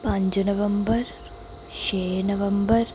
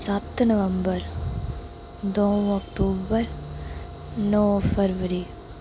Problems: background sounds at intervals, echo